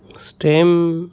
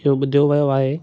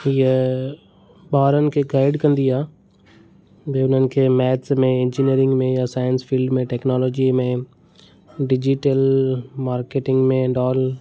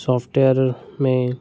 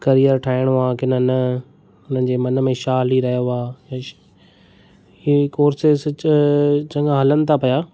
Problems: none marked